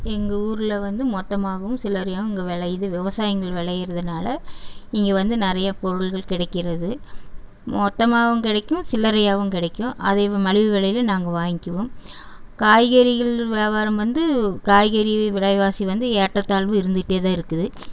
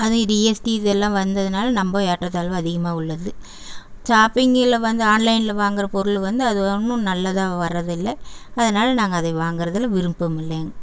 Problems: background sounds at intervals